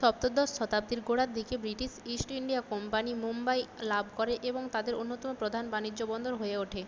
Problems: constant background noise